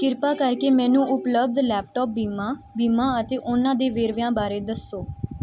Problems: background conversations at intervals